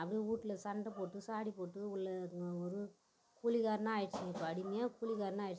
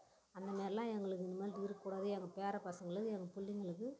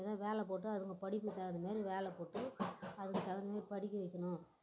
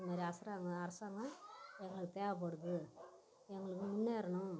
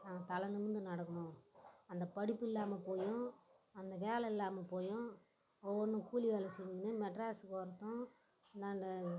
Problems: background sounds at intervals